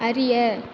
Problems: constant background noise